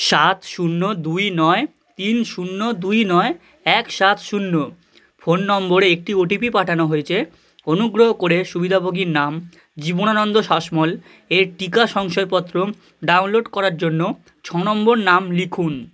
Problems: none marked